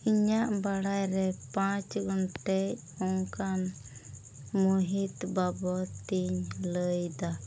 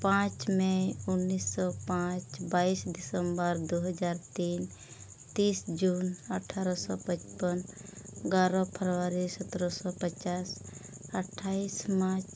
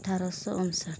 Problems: constant background noise, low volume